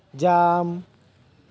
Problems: none marked